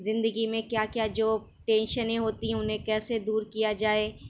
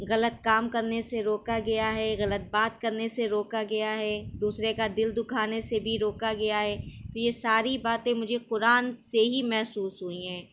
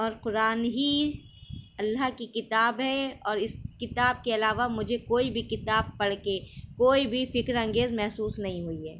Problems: none marked